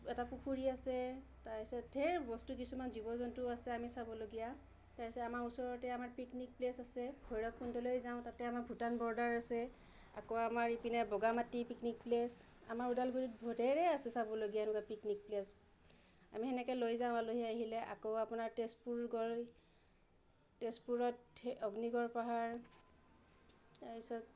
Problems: low volume